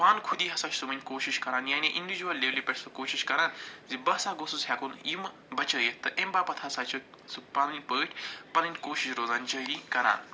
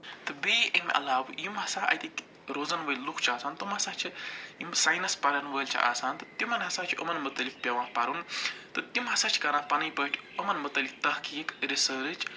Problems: none marked